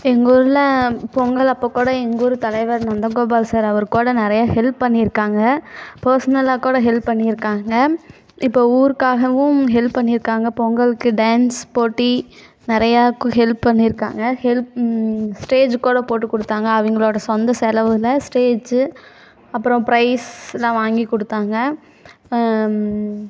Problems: background sounds at intervals